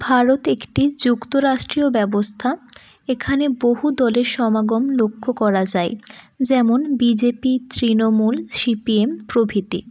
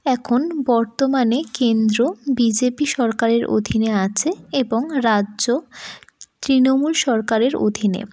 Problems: none marked